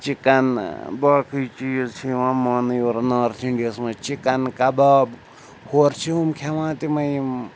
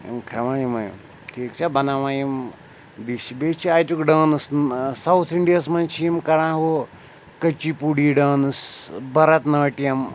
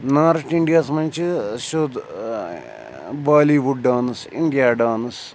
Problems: none marked